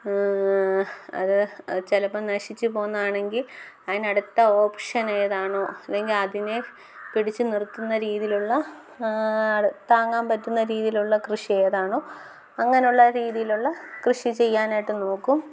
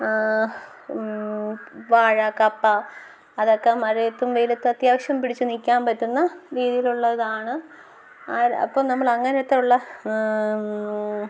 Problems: none marked